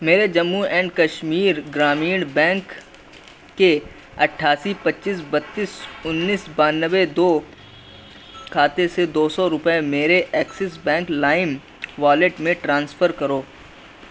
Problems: none marked